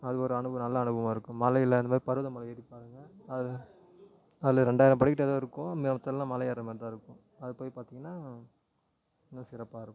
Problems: low volume